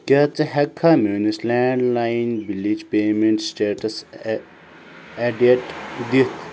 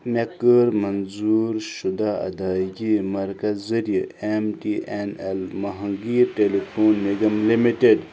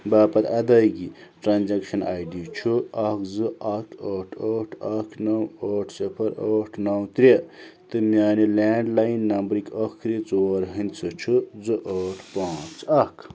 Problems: background sounds at intervals